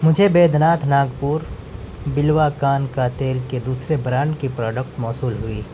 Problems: constant background noise